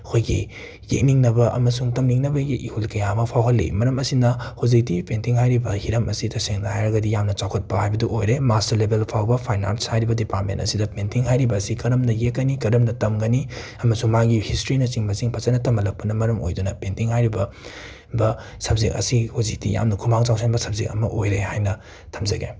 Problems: none marked